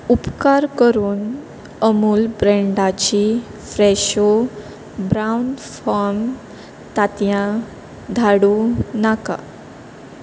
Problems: constant background noise